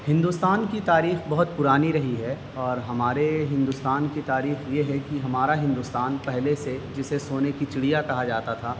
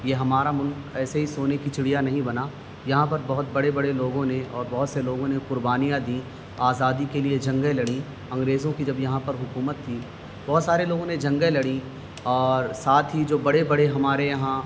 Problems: constant background noise